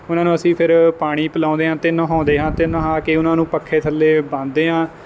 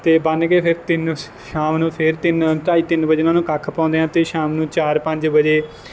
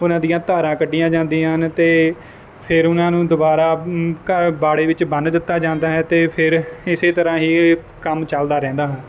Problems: none marked